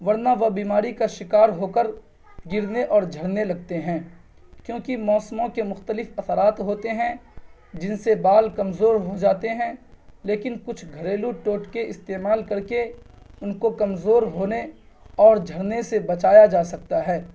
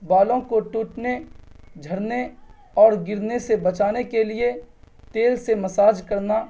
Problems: none marked